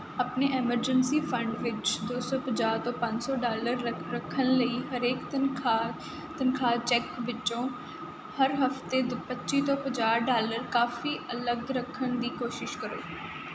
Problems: none marked